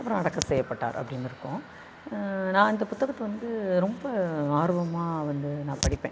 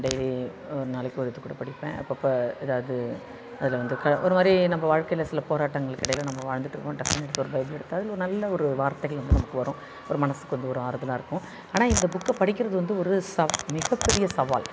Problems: constant background noise, continuous background conversations